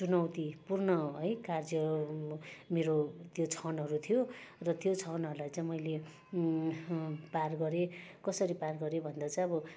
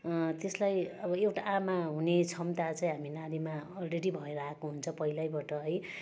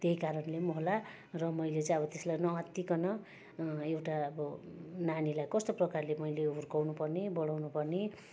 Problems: constant background noise, background conversations at intervals